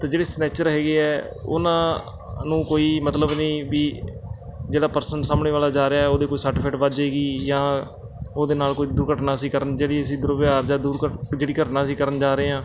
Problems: constant background noise